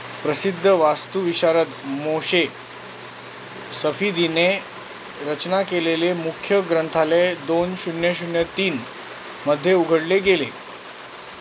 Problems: constant background noise